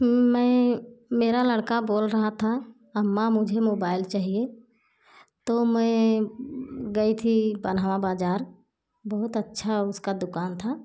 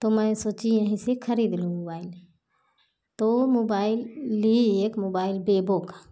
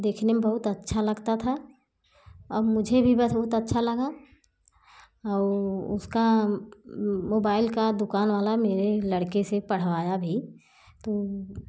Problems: background sounds at intervals